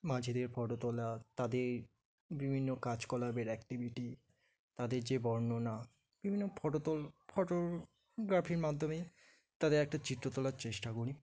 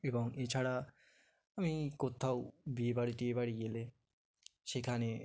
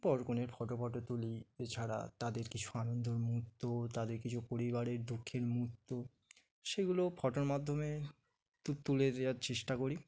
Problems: background sounds at intervals, background conversations at intervals